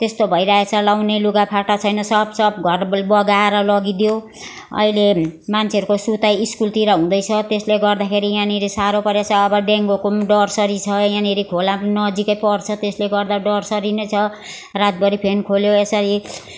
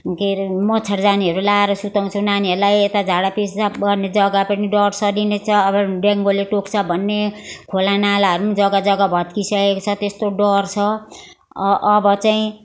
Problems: continuous background conversations